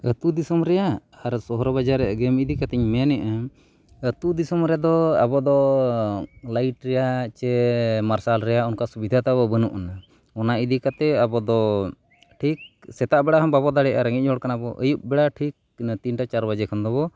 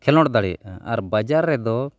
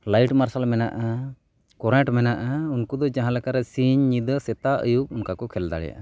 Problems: background sounds at intervals